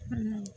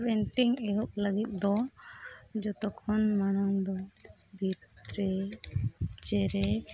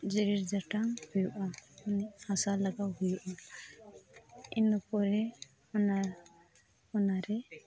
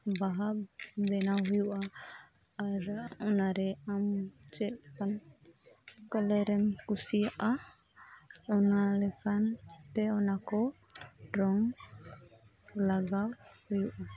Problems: background conversations at intervals